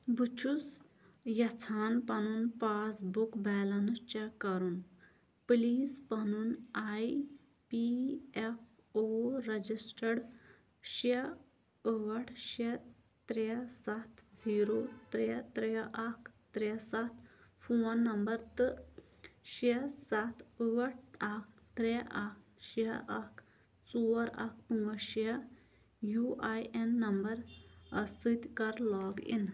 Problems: low volume